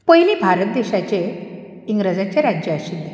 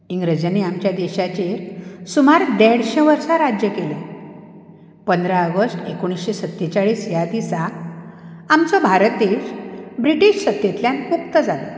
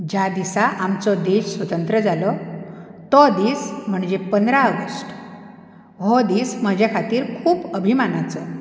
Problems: background sounds at intervals